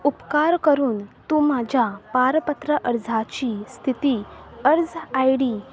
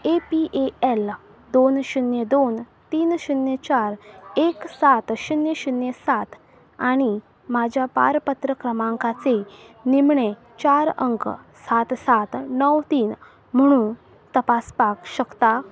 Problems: constant background noise